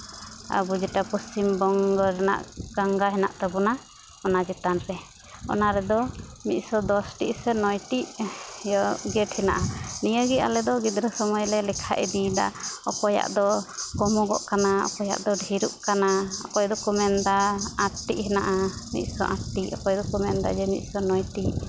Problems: constant background noise